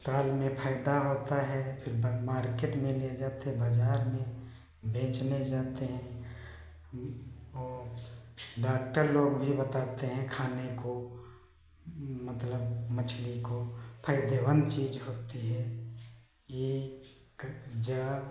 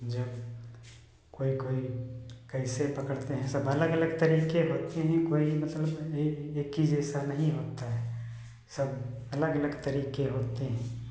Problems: background sounds at intervals